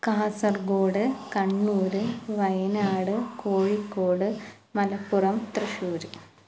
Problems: none marked